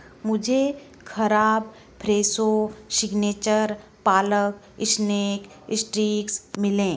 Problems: none marked